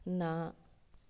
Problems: none marked